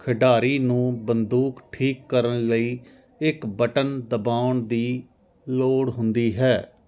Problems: none marked